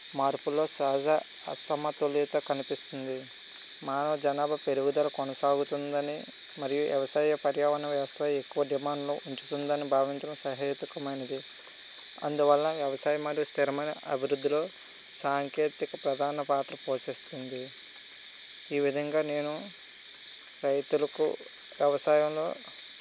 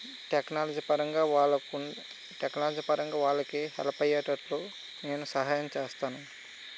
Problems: constant background noise